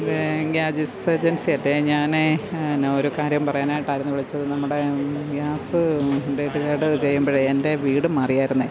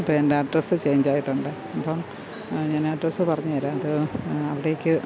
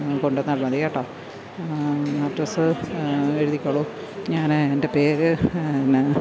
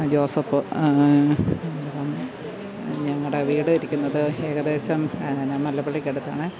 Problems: constant background noise, background conversations at intervals